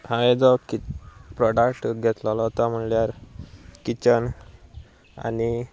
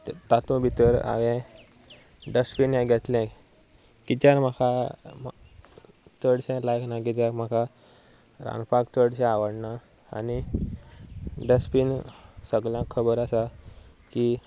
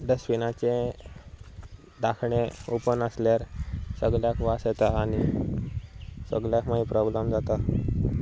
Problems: none marked